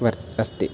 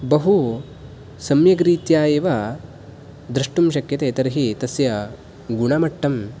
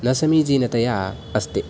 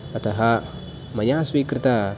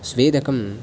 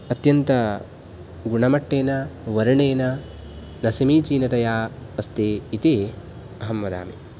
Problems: background sounds at intervals